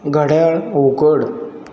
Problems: constant background noise